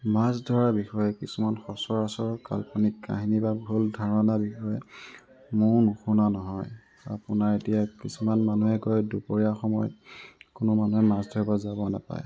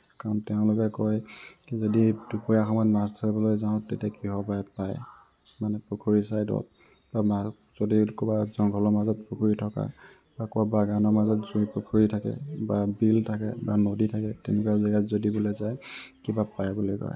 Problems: constant background noise